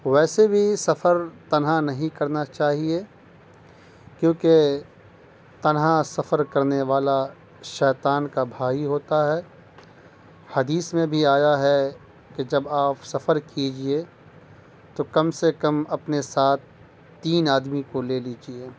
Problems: constant background noise